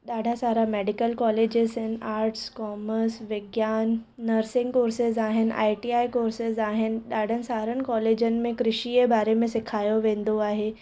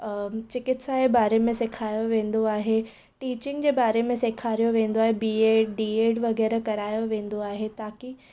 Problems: none marked